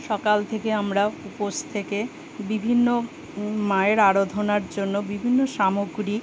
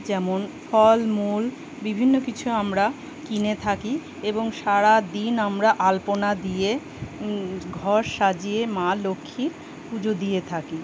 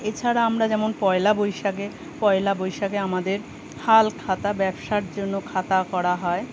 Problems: none marked